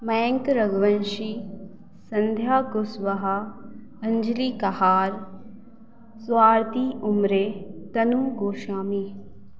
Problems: none marked